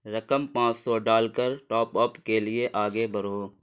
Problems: none marked